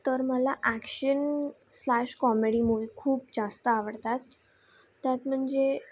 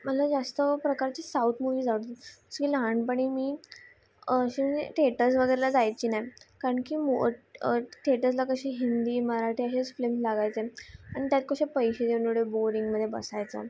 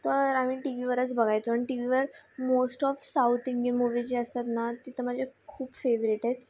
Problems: constant background noise